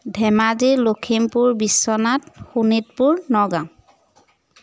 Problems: none marked